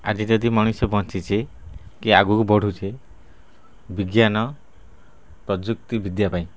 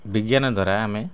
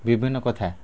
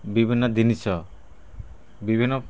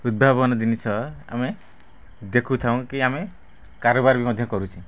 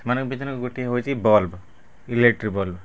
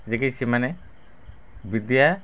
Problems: background sounds at intervals, low volume